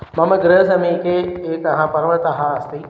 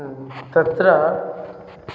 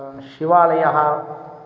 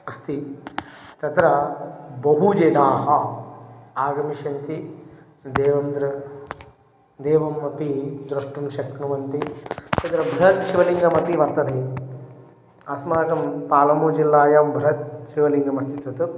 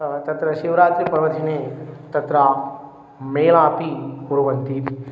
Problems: constant background noise